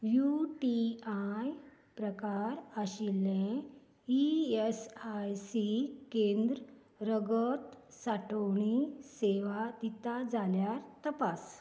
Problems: none marked